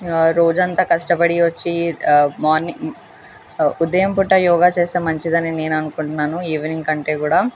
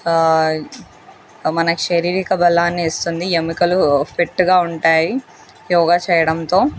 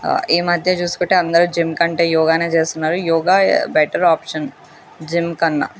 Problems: constant background noise